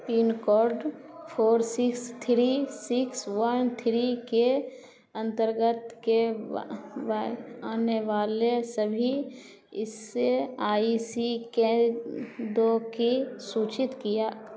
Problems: none marked